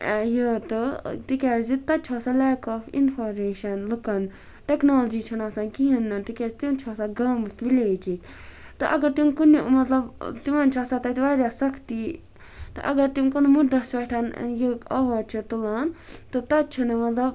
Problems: none marked